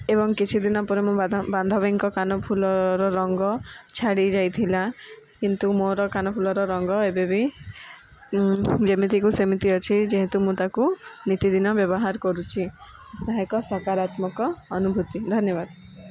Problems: background sounds at intervals